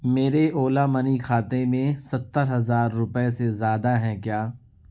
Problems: none marked